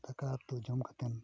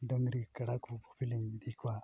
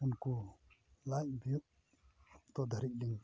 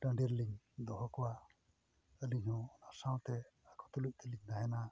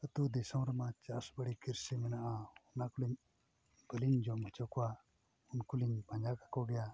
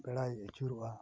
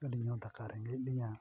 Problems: background sounds at intervals, low volume